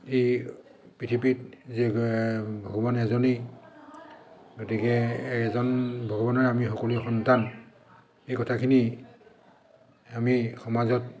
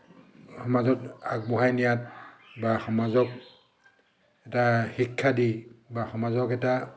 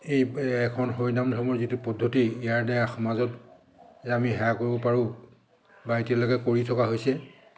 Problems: constant background noise, echo